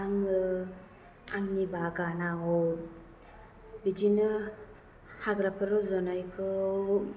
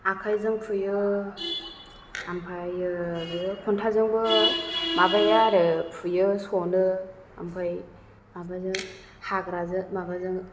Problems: low volume